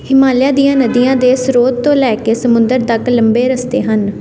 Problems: none marked